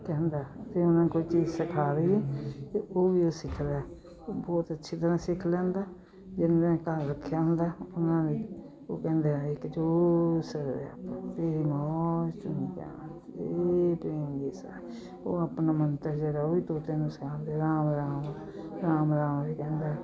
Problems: continuous background conversations